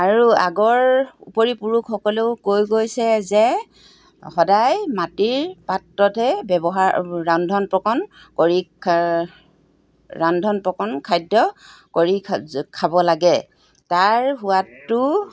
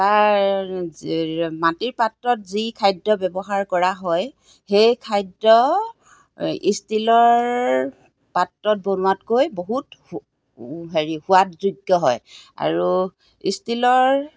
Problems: background sounds at intervals